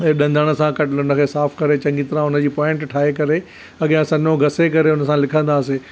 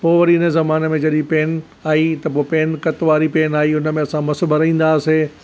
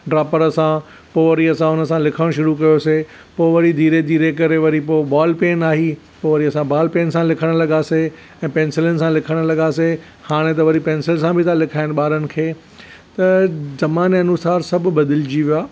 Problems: none marked